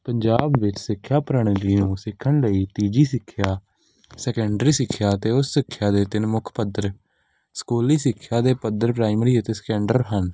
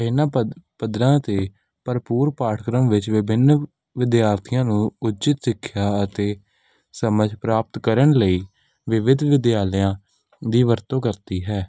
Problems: background sounds at intervals